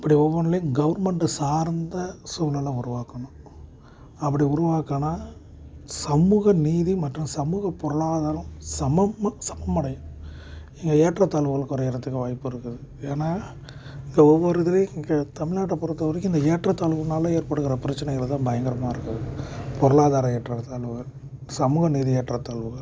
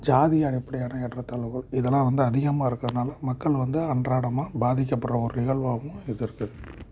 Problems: constant background noise